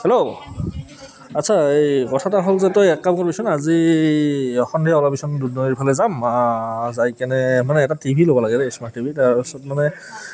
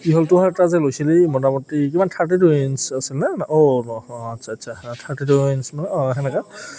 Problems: background sounds at intervals, background conversations at intervals